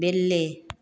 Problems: background sounds at intervals